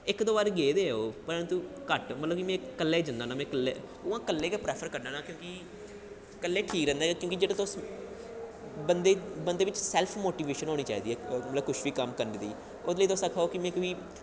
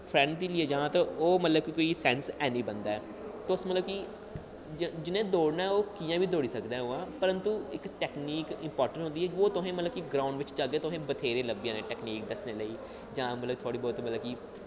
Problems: low volume